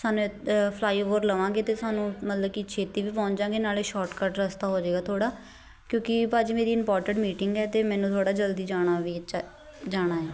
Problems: none marked